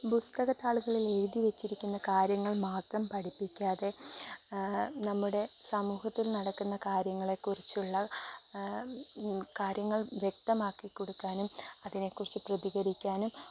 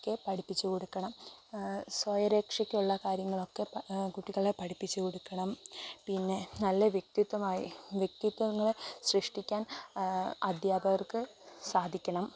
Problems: constant background noise